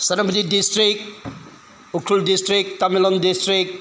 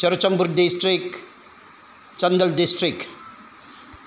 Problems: background sounds at intervals